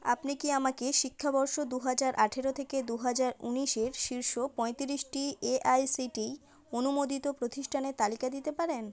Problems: none marked